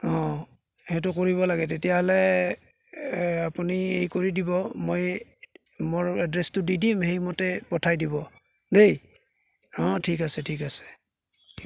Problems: background sounds at intervals